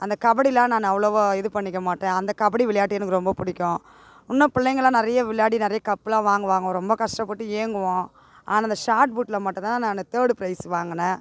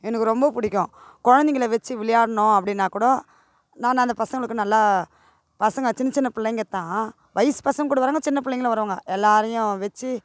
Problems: none marked